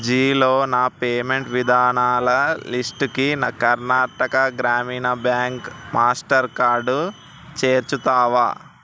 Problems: constant background noise